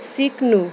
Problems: background sounds at intervals